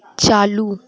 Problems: none marked